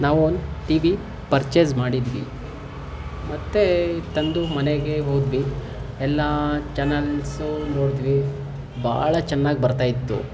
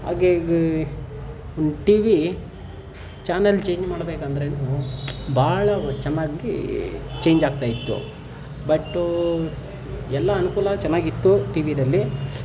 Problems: background sounds at intervals